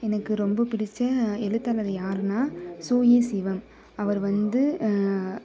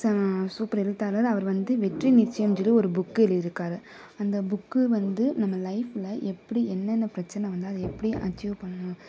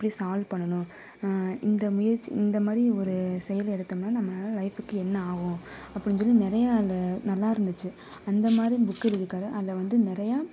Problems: background conversations at intervals